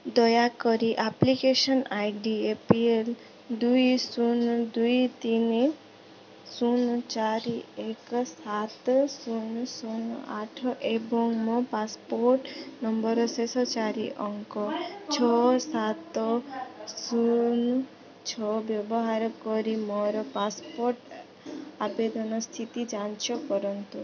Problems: background conversations at intervals